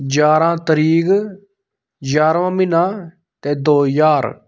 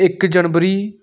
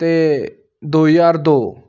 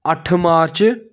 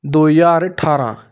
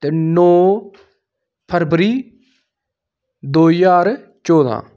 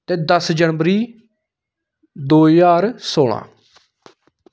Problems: none marked